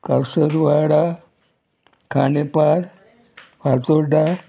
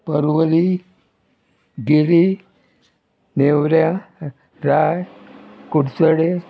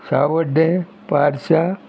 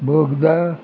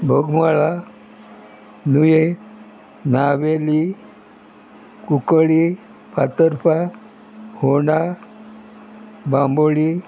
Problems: constant background noise